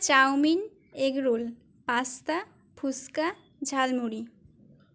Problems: background sounds at intervals, background conversations at intervals